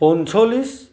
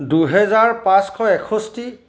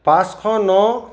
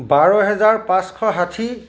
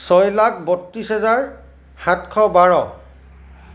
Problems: none marked